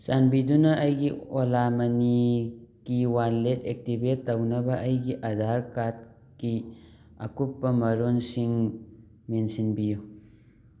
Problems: background sounds at intervals